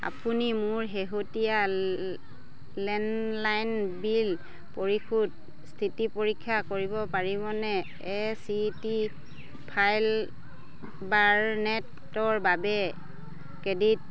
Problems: none marked